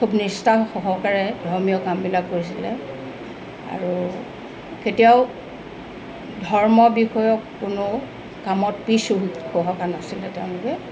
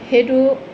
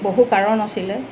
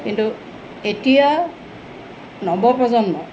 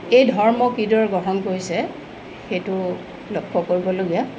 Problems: constant background noise